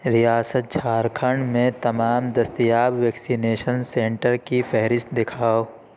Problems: none marked